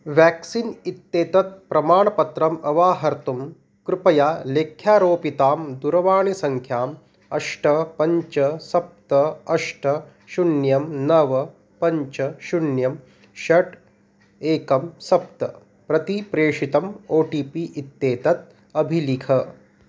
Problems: none marked